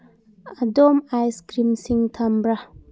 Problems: none marked